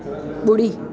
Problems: constant background noise, echo